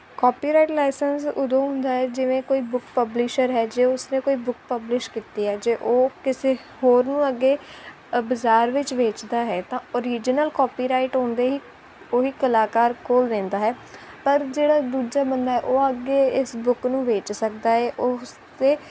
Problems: none marked